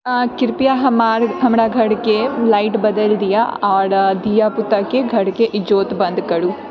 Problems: background sounds at intervals, background conversations at intervals